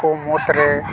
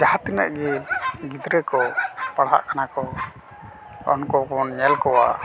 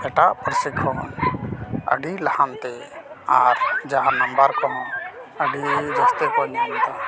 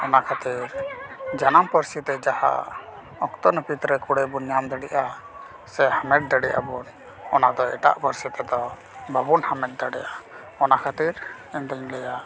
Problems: none marked